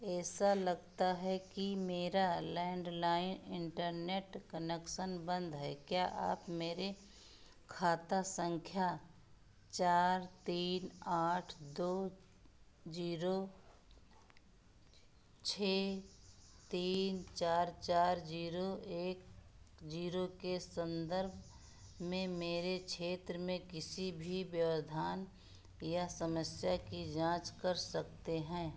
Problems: background sounds at intervals